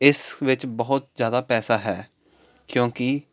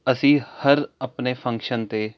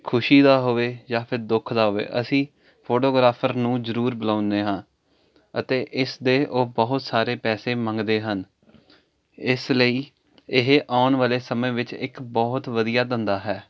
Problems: constant background noise